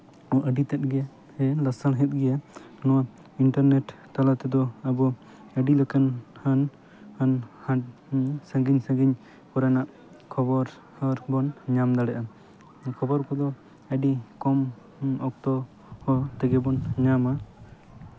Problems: background sounds at intervals